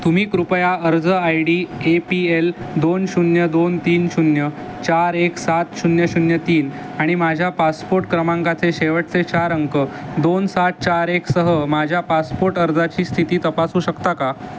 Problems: constant background noise